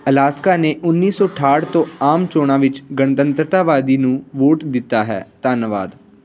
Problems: constant background noise